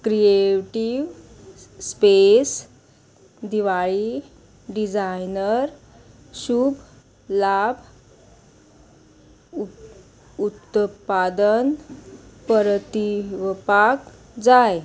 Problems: constant background noise